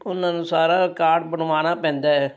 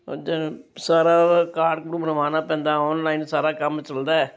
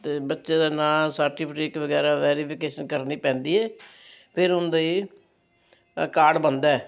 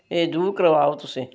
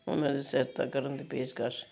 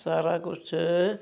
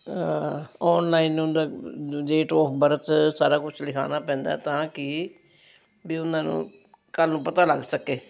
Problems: constant background noise